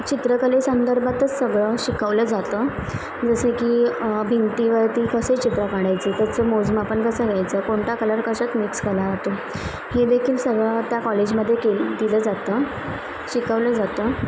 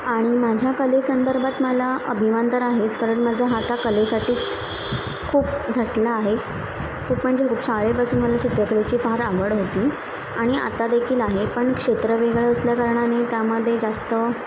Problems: constant background noise, continuous background conversations